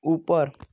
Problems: constant background noise